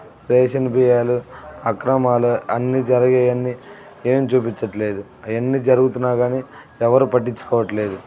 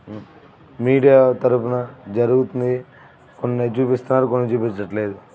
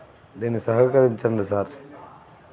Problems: constant background noise, background conversations at intervals